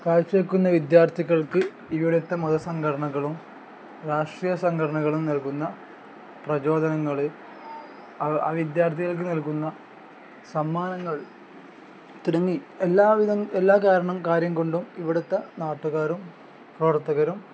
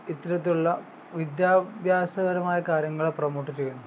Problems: none marked